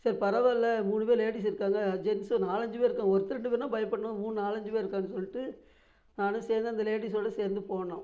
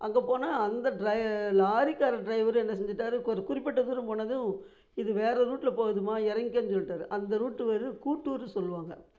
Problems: none marked